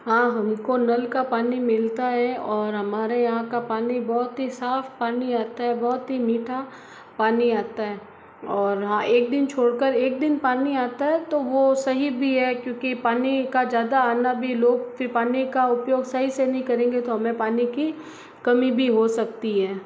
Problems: background sounds at intervals